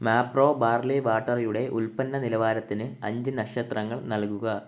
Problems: background sounds at intervals